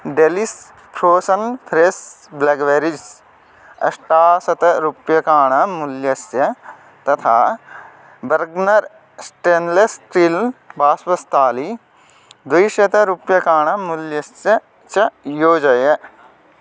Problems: none marked